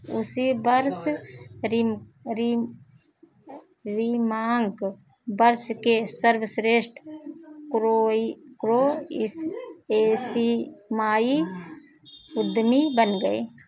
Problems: background sounds at intervals